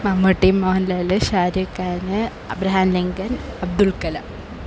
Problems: constant background noise, low volume